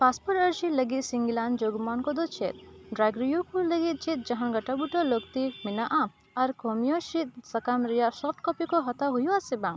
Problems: none marked